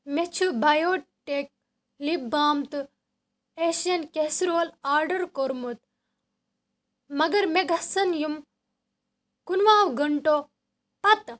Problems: none marked